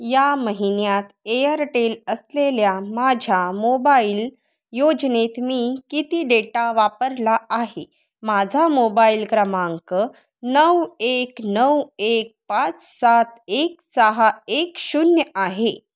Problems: none marked